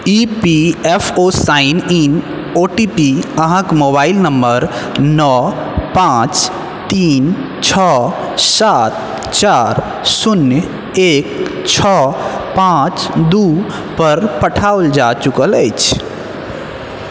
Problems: echo